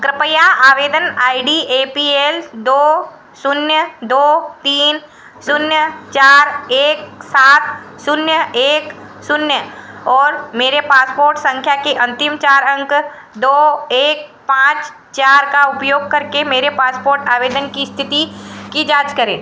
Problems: background sounds at intervals, echo